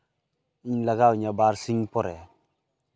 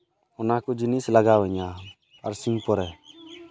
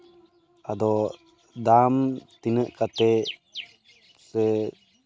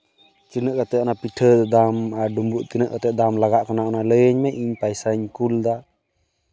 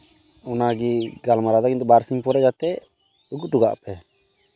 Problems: constant background noise, continuous background conversations